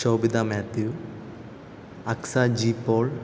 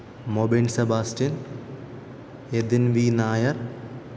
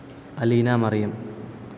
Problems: background sounds at intervals